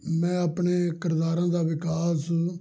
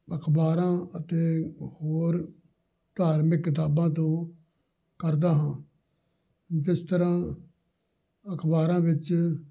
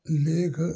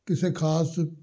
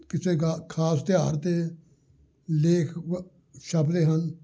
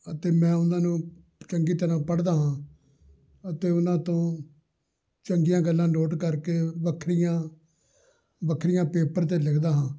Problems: background conversations at intervals